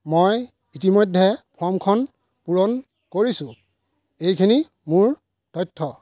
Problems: constant background noise